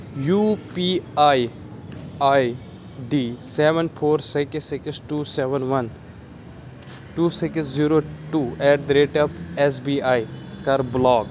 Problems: constant background noise